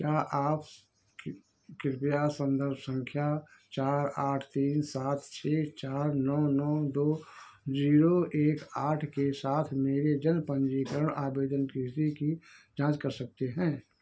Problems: background sounds at intervals